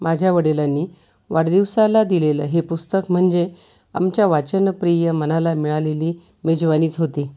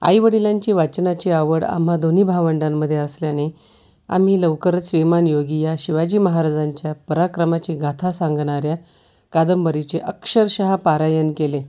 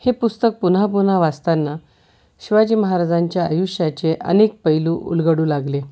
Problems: none marked